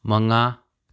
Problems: none marked